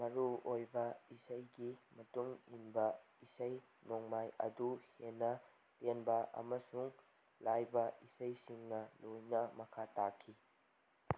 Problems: none marked